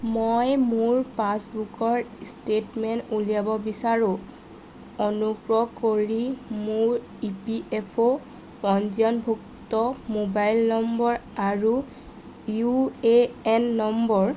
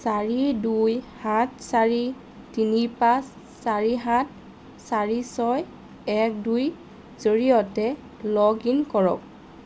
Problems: constant background noise